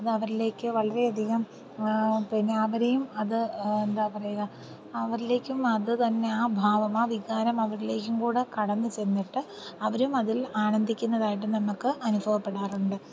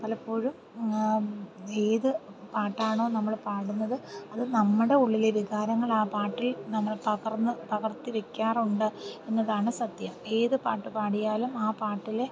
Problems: constant background noise, low volume